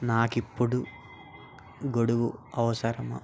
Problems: none marked